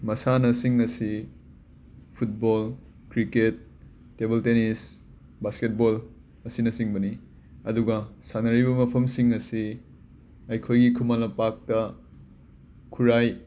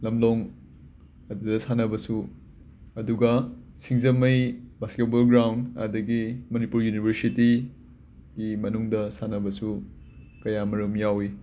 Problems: background sounds at intervals